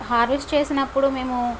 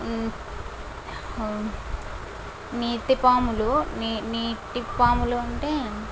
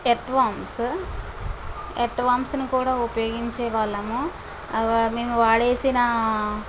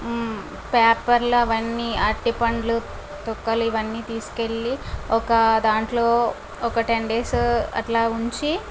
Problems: constant background noise